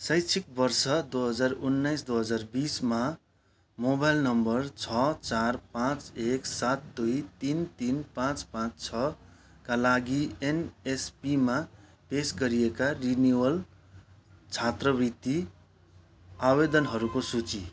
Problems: constant background noise